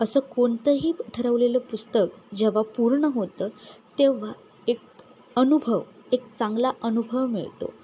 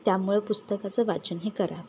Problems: none marked